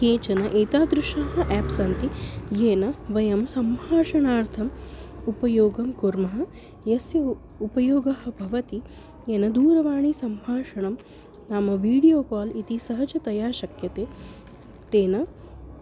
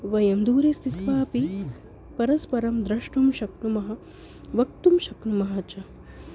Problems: constant background noise